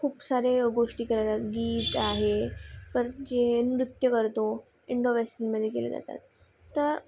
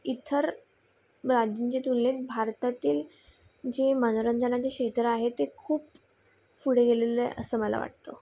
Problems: constant background noise